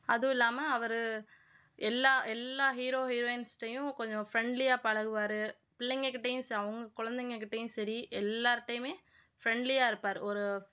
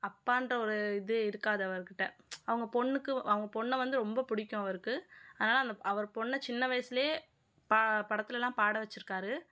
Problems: none marked